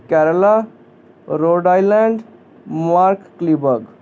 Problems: constant background noise